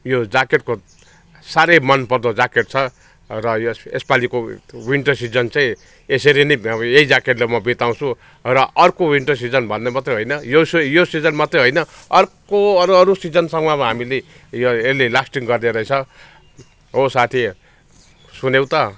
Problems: background sounds at intervals, background conversations at intervals